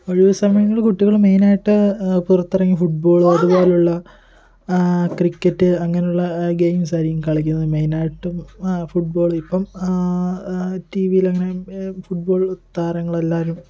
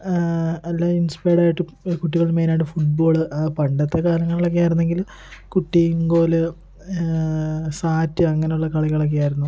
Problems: continuous background conversations